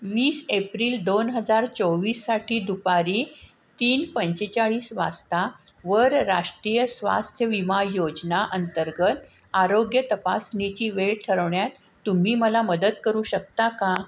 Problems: constant background noise